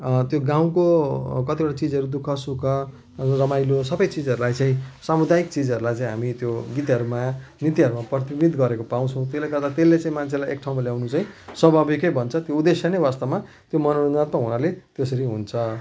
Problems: constant background noise